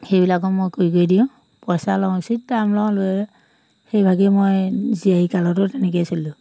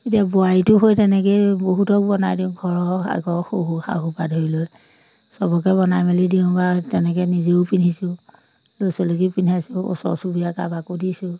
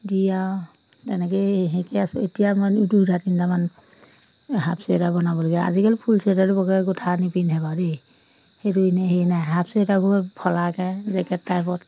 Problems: none marked